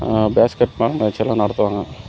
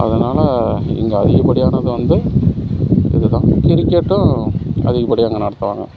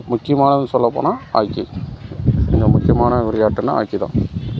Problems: background sounds at intervals